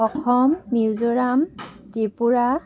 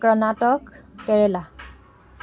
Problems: constant background noise, continuous background conversations